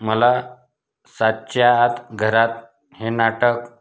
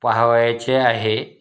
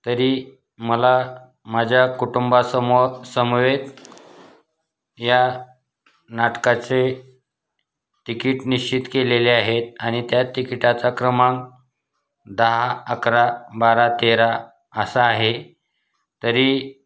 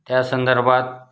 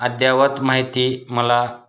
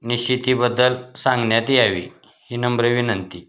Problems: constant background noise